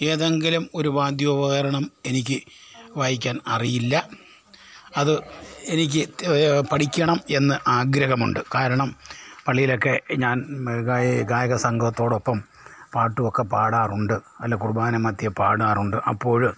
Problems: background sounds at intervals